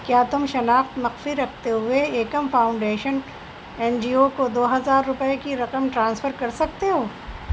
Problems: constant background noise